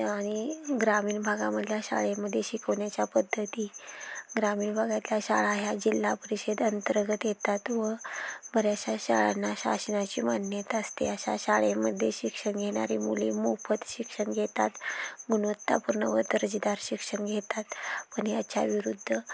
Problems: background sounds at intervals